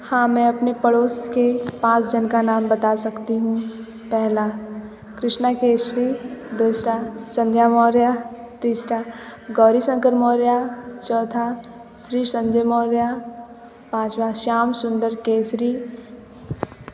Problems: constant background noise, background conversations at intervals